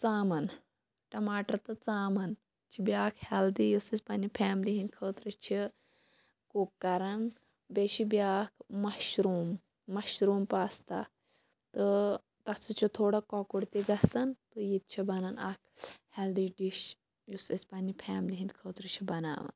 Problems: none marked